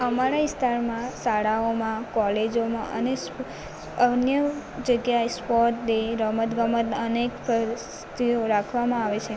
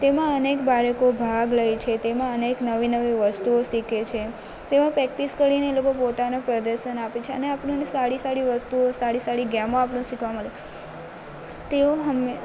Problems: none marked